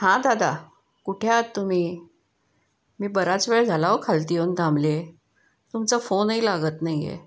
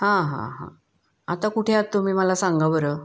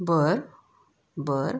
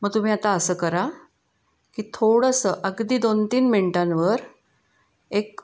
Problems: constant background noise